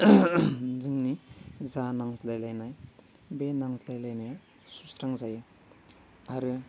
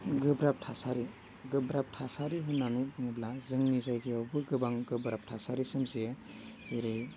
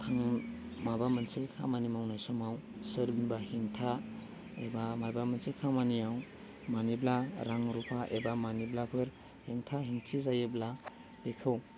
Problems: low volume